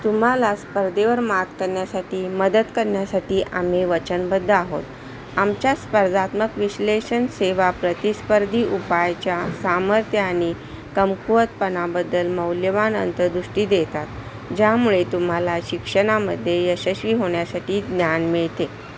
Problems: constant background noise